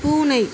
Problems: constant background noise